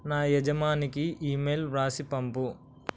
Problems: constant background noise